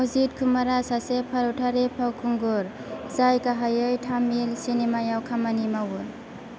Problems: constant background noise